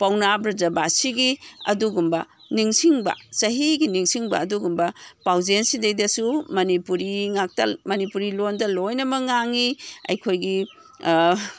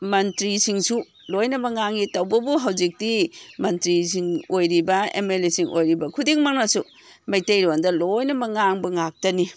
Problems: background sounds at intervals